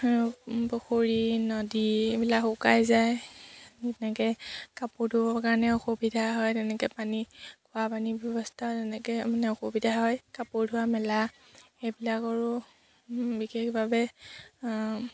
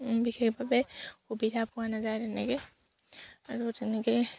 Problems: none marked